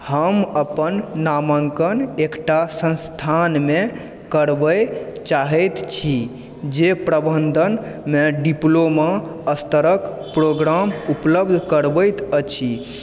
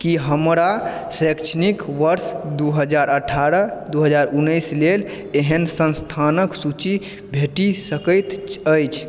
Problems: background sounds at intervals